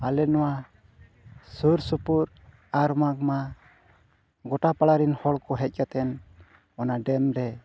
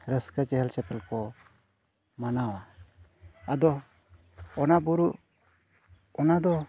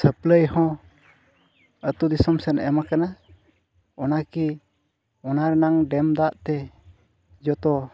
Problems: background sounds at intervals, low volume